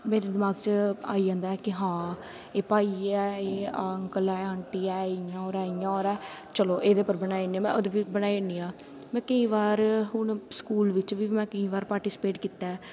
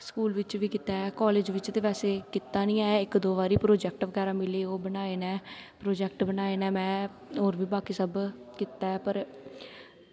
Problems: constant background noise